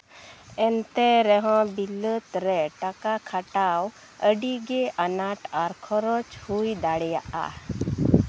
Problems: none marked